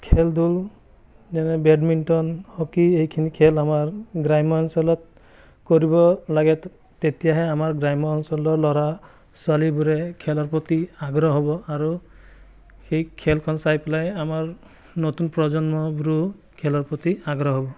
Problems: background sounds at intervals, background conversations at intervals